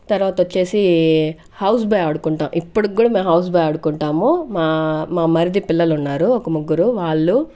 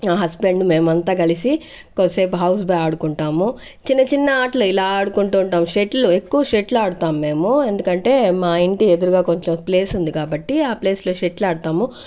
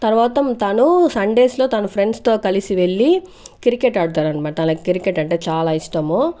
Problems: background sounds at intervals